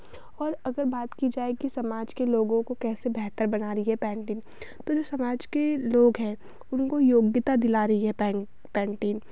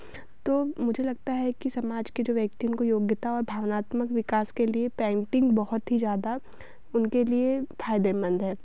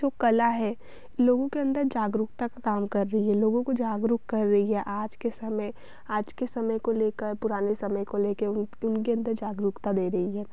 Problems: none marked